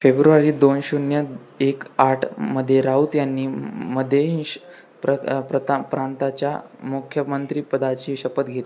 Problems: none marked